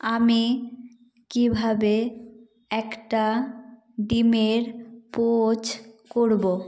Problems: background sounds at intervals